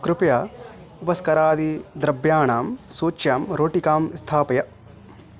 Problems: none marked